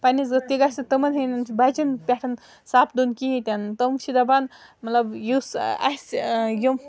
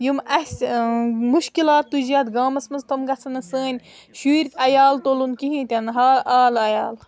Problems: background sounds at intervals